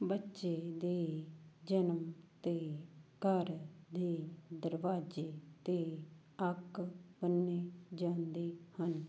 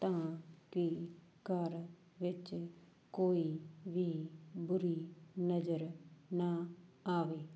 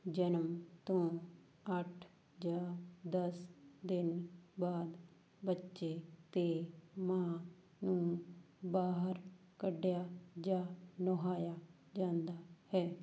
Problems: background sounds at intervals